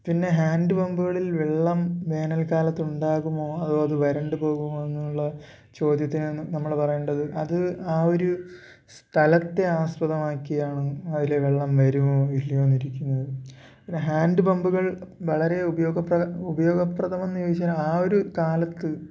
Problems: none marked